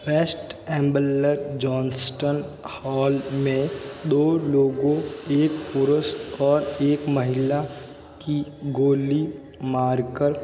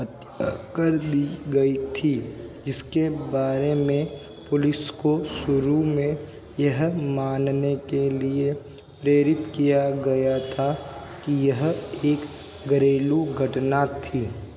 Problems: constant background noise, background conversations at intervals